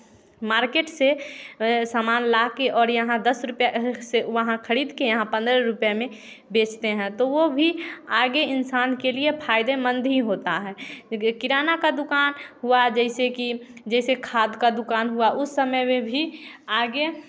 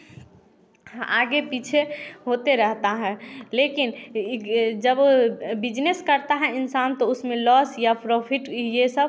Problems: background sounds at intervals